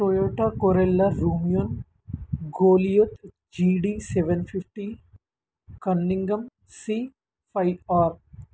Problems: background sounds at intervals